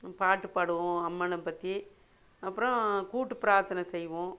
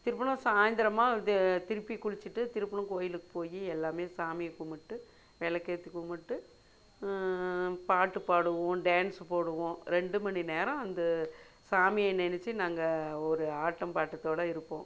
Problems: none marked